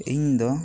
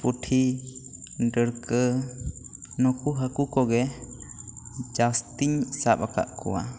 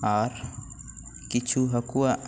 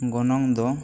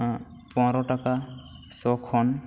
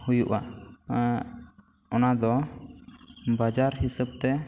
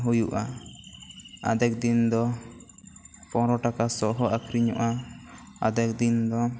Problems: none marked